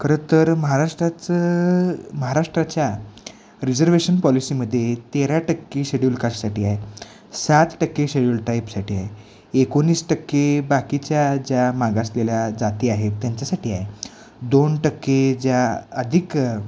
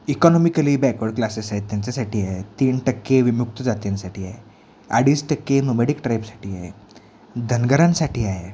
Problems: none marked